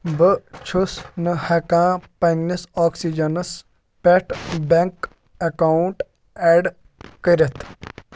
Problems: none marked